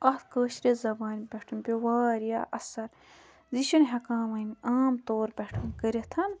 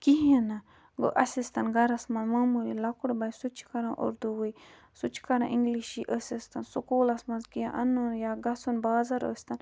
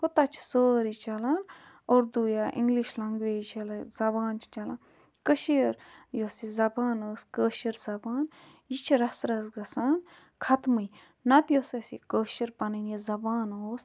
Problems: background sounds at intervals